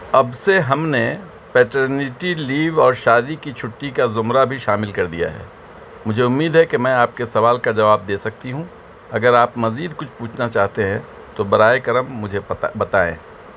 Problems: constant background noise